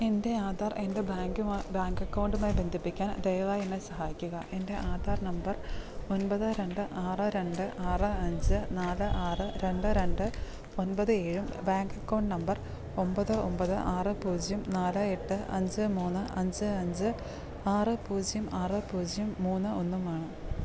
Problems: constant background noise, low volume